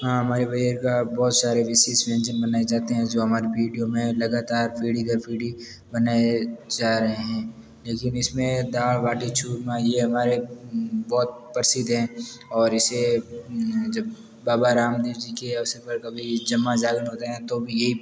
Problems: background sounds at intervals, background conversations at intervals